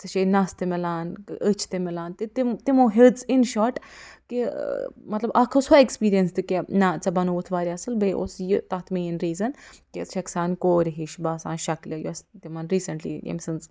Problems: none marked